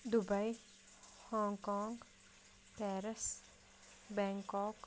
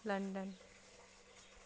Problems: background sounds at intervals